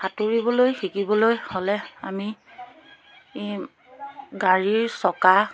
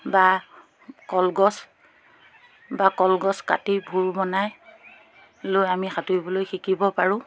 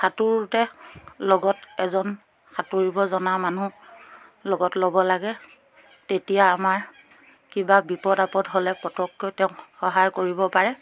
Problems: background sounds at intervals